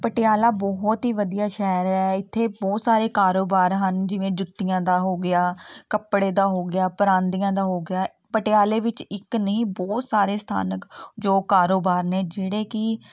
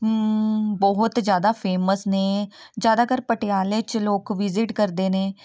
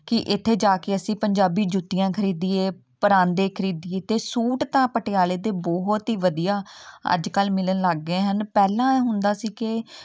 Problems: none marked